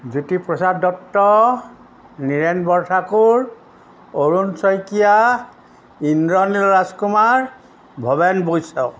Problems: constant background noise